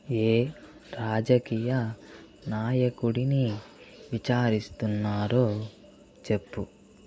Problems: background sounds at intervals